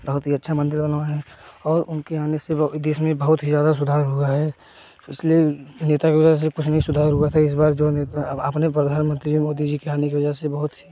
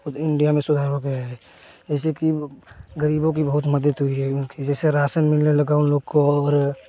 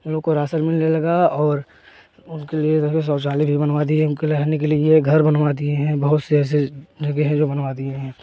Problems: constant background noise